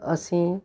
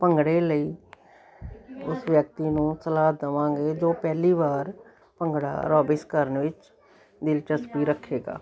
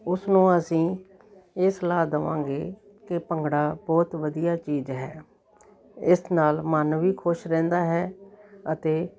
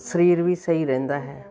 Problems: continuous background conversations